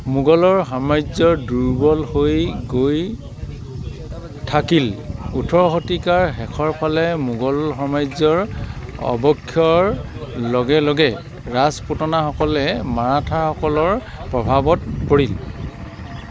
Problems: background sounds at intervals